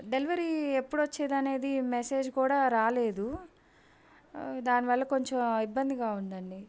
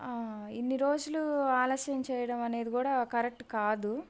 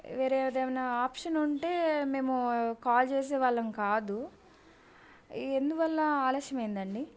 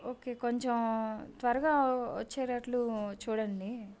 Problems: none marked